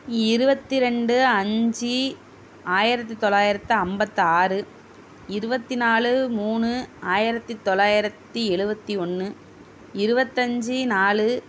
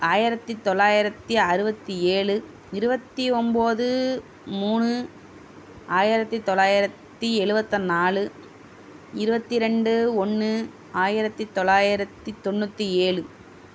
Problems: constant background noise